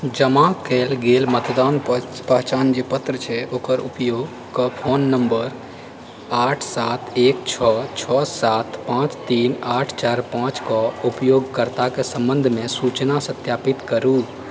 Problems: constant background noise